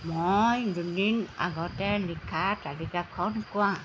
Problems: constant background noise